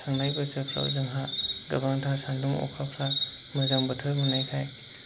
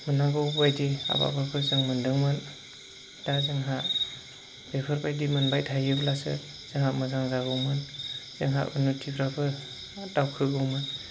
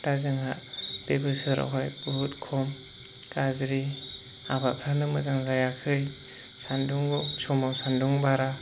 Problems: constant background noise